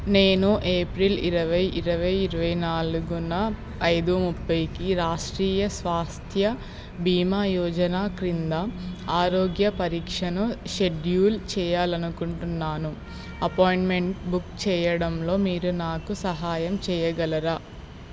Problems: constant background noise